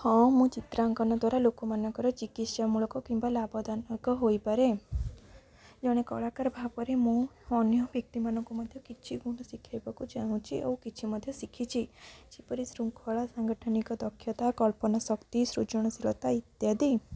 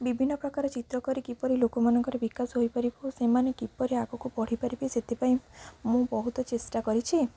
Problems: low volume